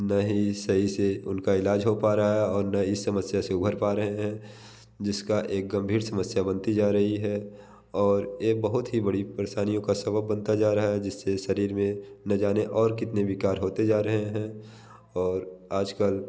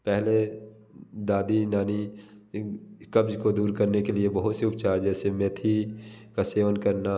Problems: constant background noise